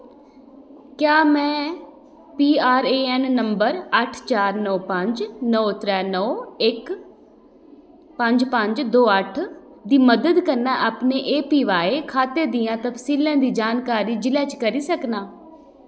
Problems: echo